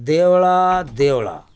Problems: none marked